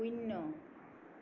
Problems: background sounds at intervals